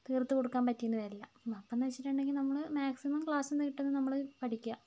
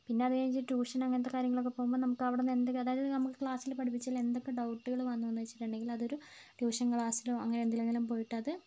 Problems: low volume